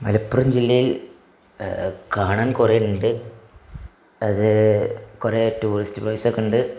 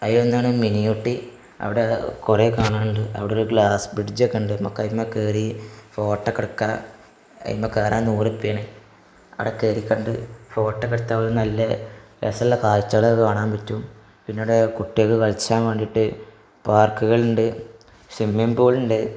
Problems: none marked